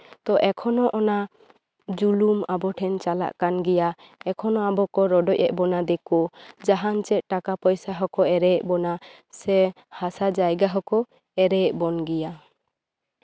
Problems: none marked